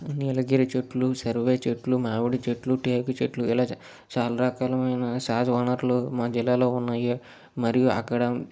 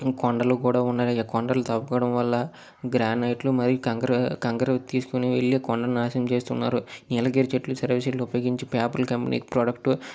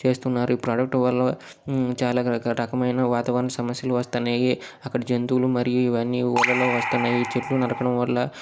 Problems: background sounds at intervals